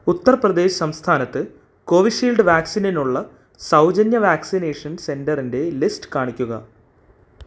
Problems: none marked